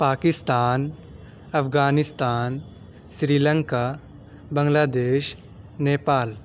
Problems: none marked